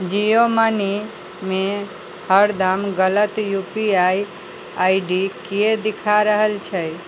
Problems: none marked